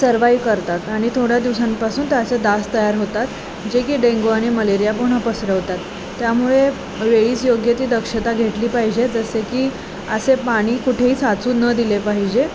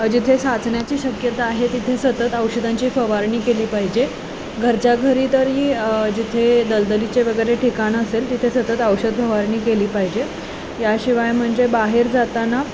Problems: constant background noise, background conversations at intervals